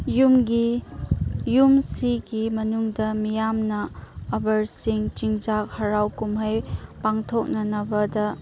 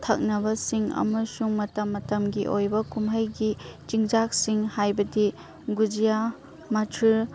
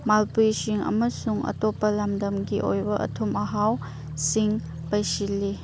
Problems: background sounds at intervals